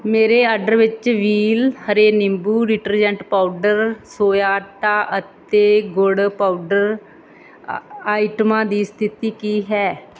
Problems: none marked